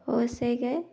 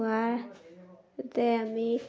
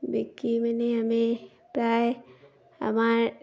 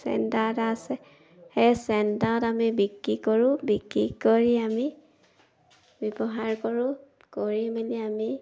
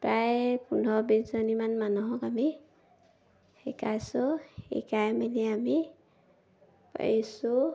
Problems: background sounds at intervals